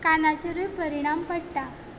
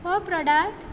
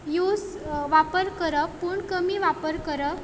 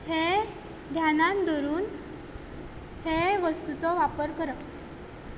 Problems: none marked